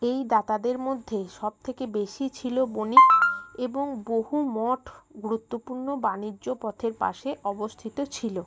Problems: none marked